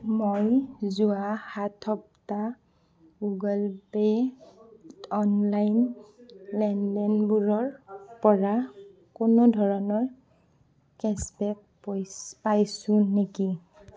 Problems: none marked